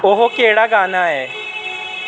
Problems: constant background noise